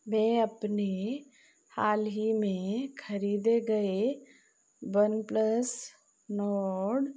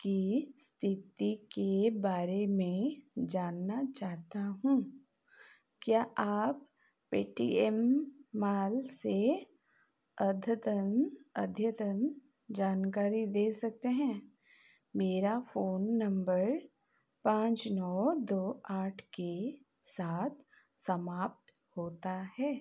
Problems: none marked